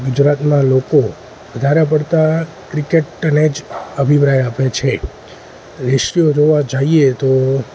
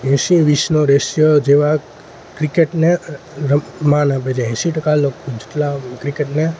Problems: constant background noise